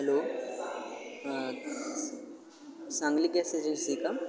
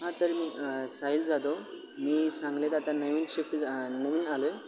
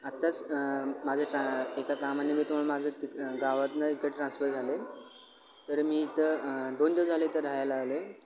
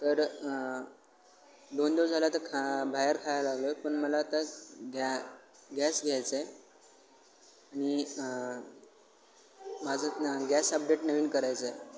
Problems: constant background noise, continuous background conversations